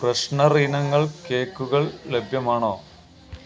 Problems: constant background noise